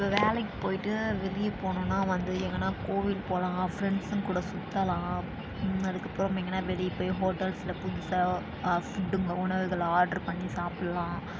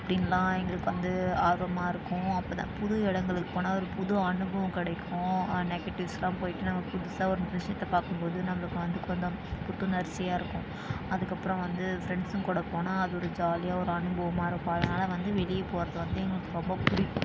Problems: low volume